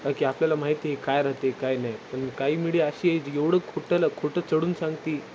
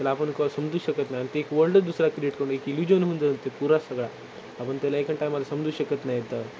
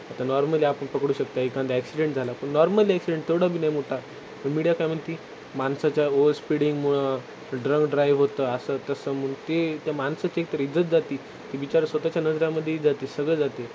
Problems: constant background noise